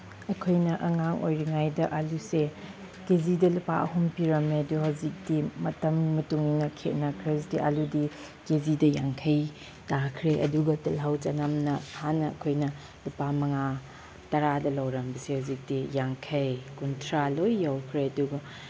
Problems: none marked